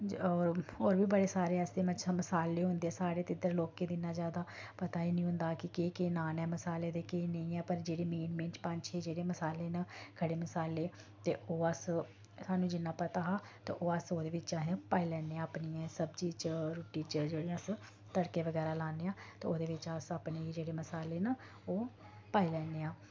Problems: low volume